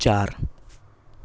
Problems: none marked